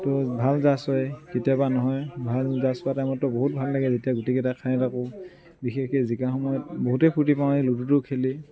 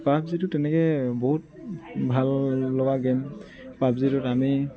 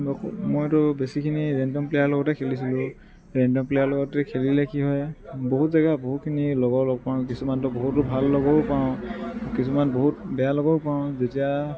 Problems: constant background noise, background conversations at intervals